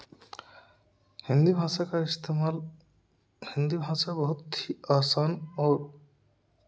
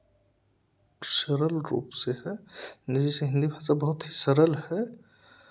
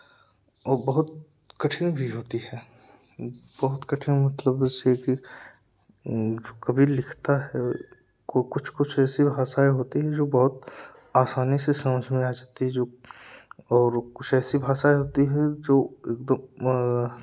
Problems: none marked